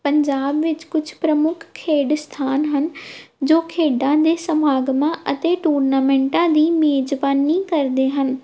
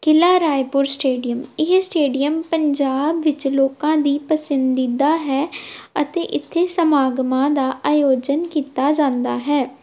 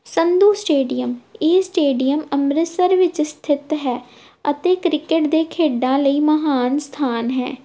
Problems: background sounds at intervals